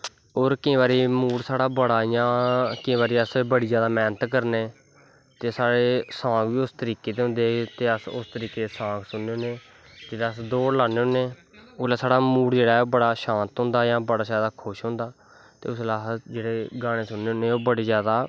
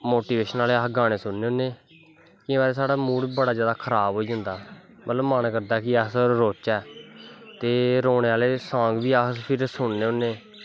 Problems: constant background noise